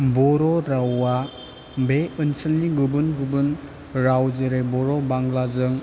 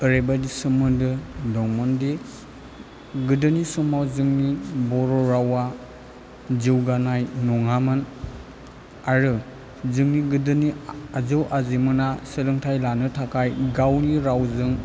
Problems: none marked